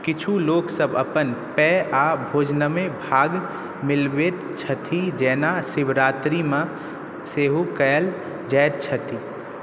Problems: background sounds at intervals